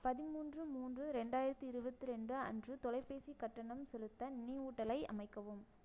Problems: low volume